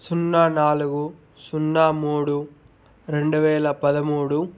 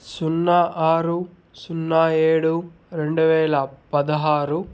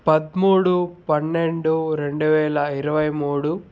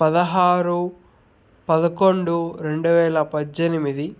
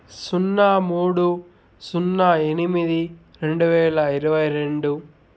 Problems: none marked